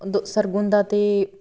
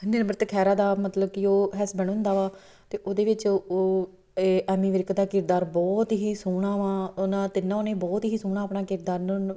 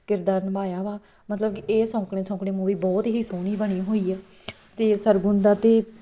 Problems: none marked